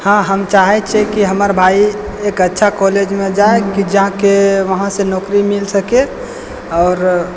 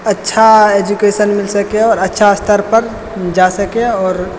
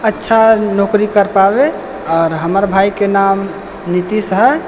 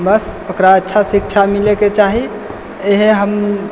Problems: none marked